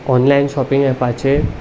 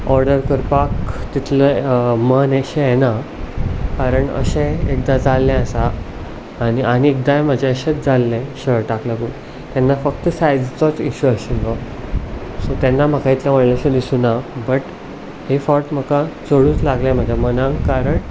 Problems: constant background noise